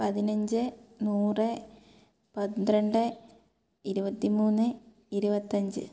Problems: none marked